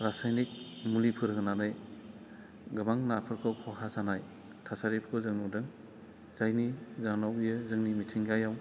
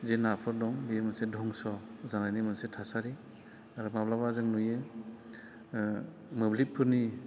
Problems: none marked